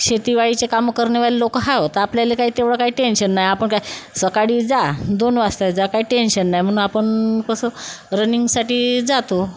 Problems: none marked